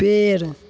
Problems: constant background noise